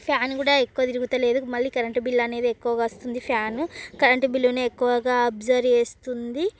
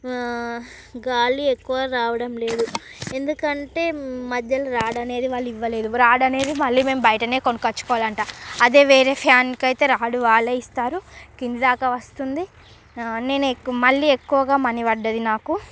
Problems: background sounds at intervals